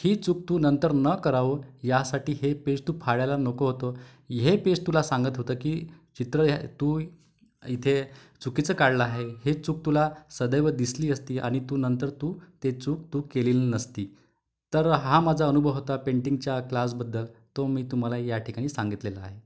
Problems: background sounds at intervals